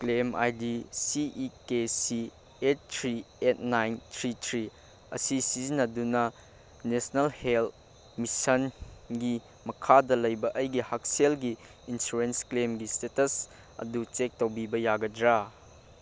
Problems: none marked